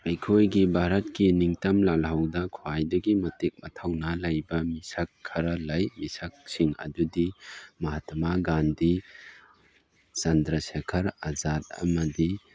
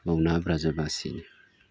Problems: background sounds at intervals